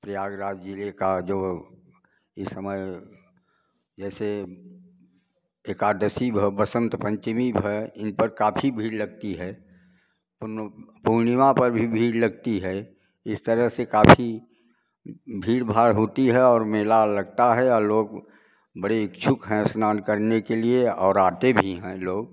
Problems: background sounds at intervals